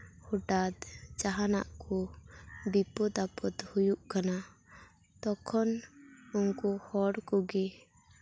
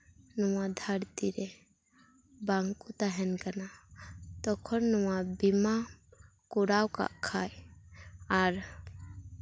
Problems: none marked